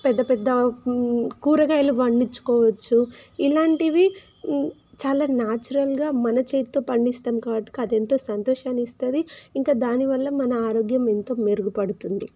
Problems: constant background noise